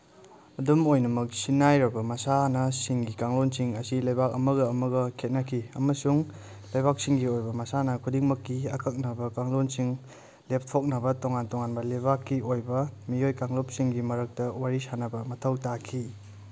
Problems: background sounds at intervals